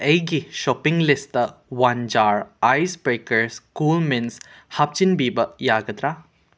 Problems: none marked